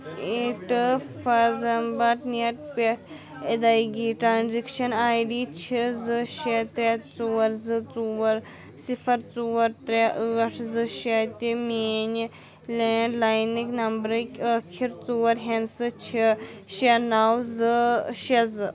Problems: background sounds at intervals